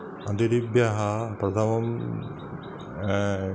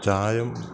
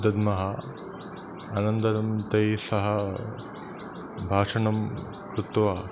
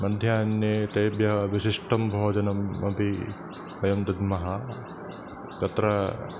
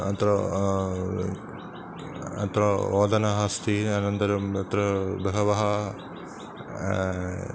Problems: constant background noise